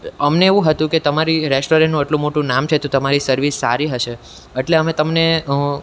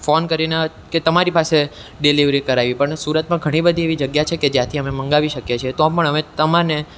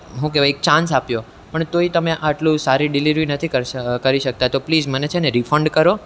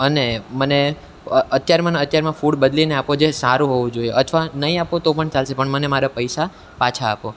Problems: none marked